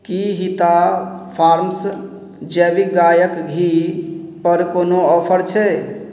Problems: none marked